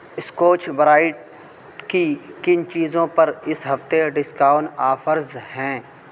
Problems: constant background noise